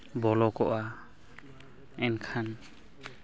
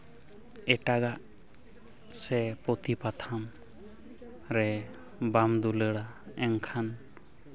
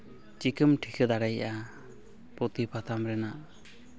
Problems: constant background noise